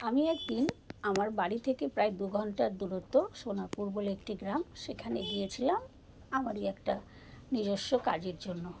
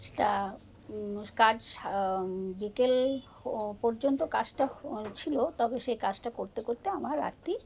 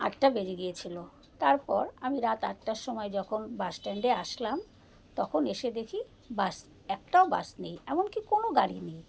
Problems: constant background noise, background conversations at intervals